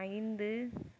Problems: low volume